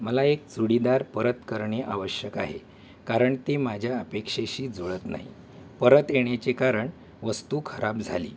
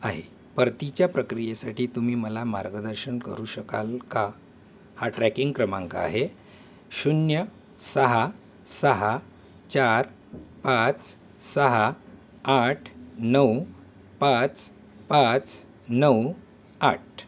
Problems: background sounds at intervals